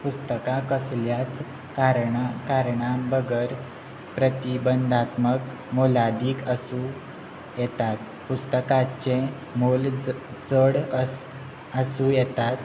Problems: constant background noise